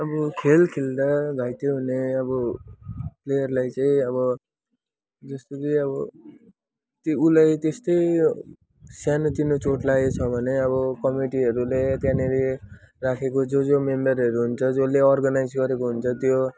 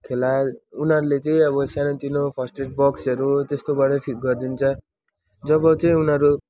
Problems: background sounds at intervals